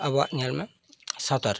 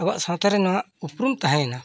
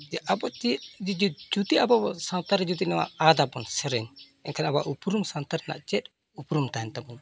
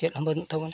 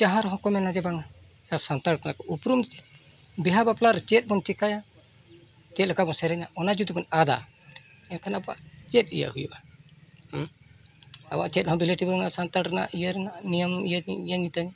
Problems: constant background noise, background conversations at intervals